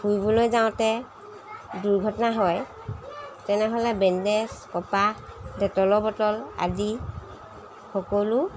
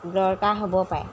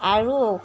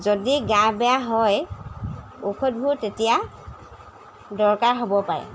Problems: background sounds at intervals